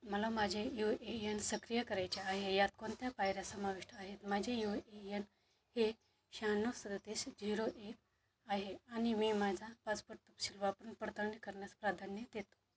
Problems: background sounds at intervals